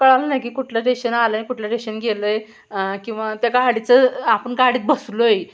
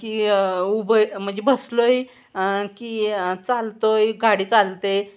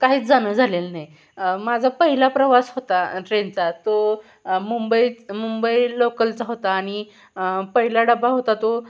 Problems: background sounds at intervals